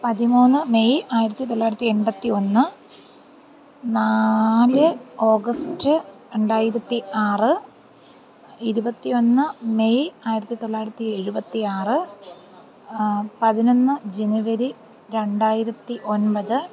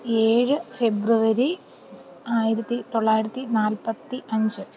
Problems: background sounds at intervals